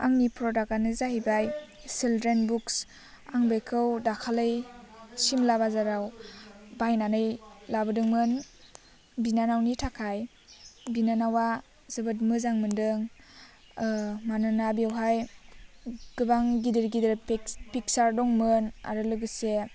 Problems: none marked